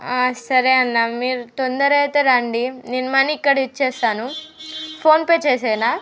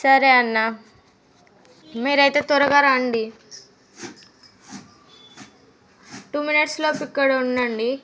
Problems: background sounds at intervals, background conversations at intervals